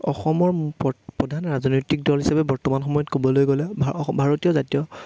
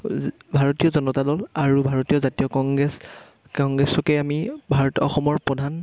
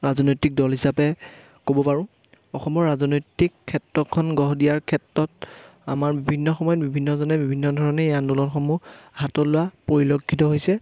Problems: none marked